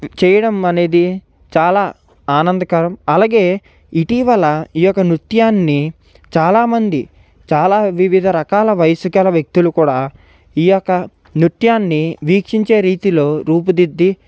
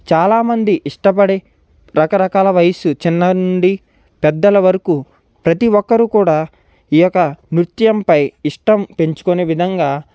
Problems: background sounds at intervals